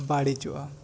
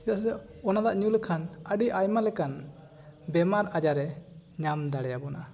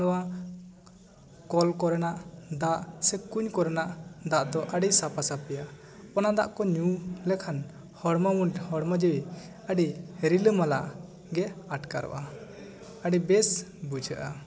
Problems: background conversations at intervals